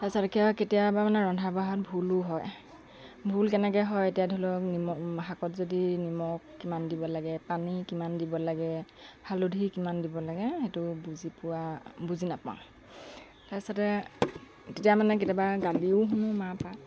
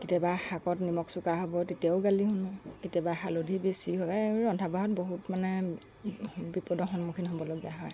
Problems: background sounds at intervals